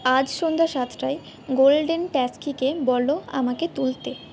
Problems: background sounds at intervals